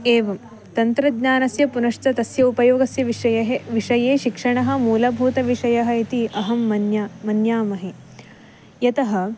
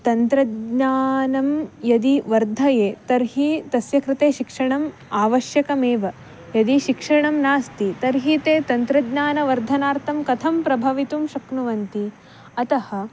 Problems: background sounds at intervals